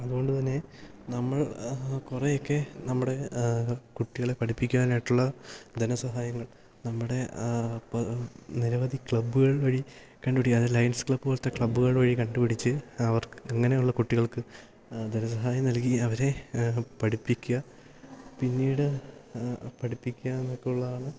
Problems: background sounds at intervals, low volume